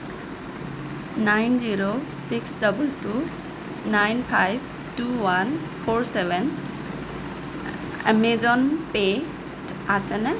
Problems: constant background noise